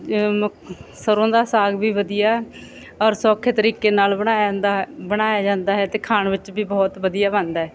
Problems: none marked